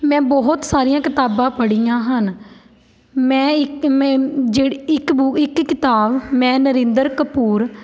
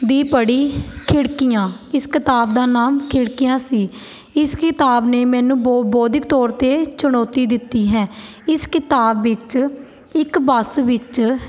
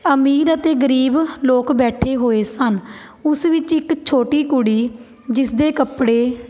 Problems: background sounds at intervals